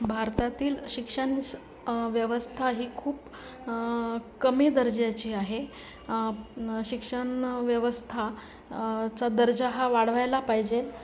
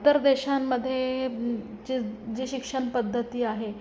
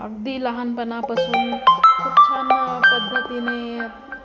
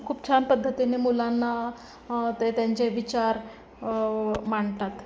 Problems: constant background noise, continuous background conversations